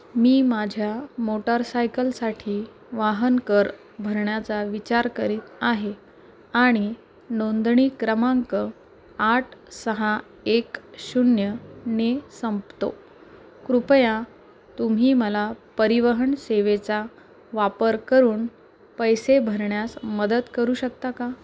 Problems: constant background noise, background conversations at intervals